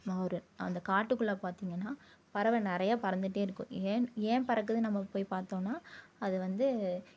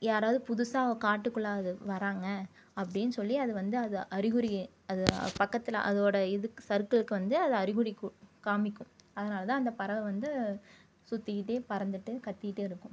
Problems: low volume